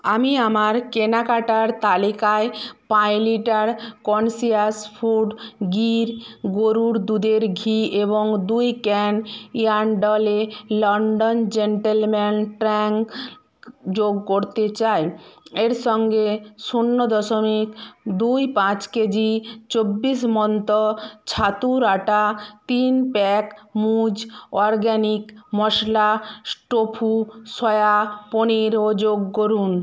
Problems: background sounds at intervals